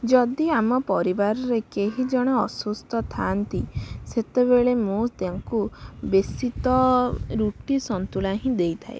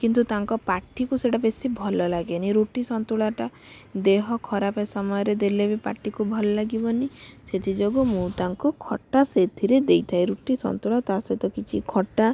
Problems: none marked